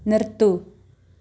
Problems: none marked